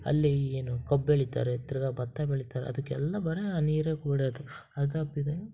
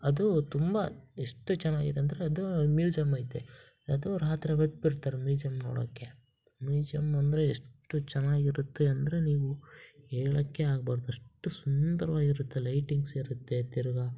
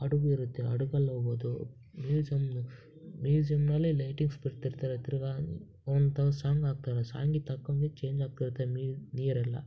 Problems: background sounds at intervals